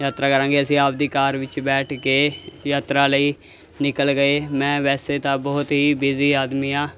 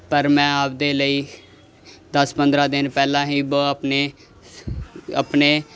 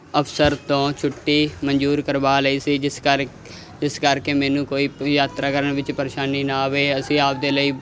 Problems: constant background noise